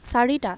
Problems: none marked